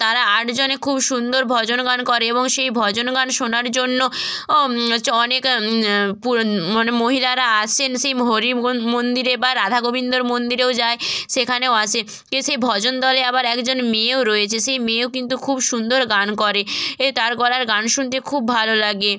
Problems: constant background noise